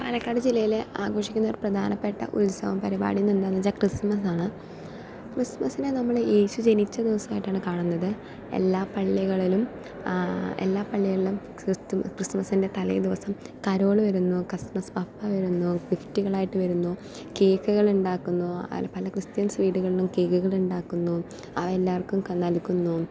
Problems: none marked